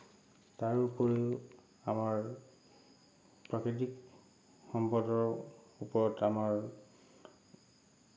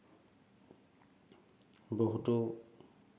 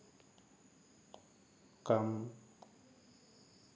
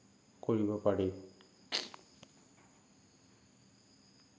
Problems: none marked